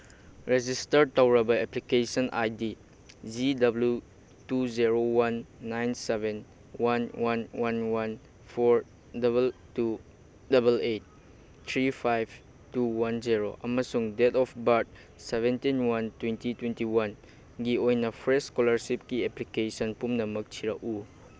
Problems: none marked